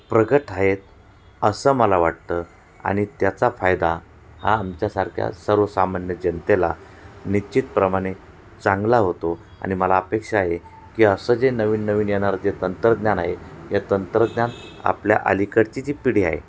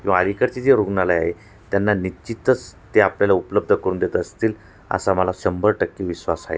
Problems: none marked